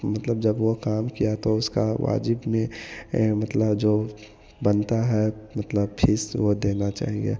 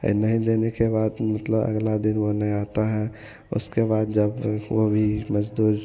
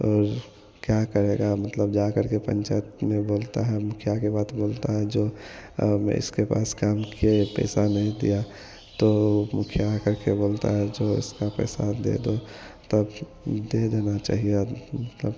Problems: none marked